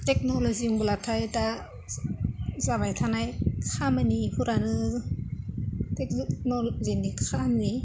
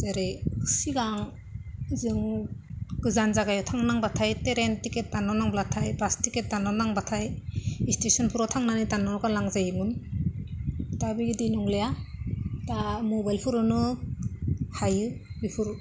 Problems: low volume